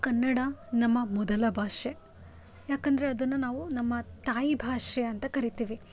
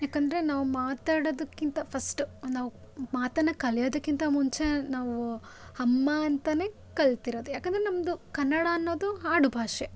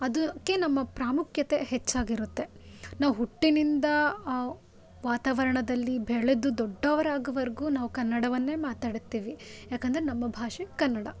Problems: none marked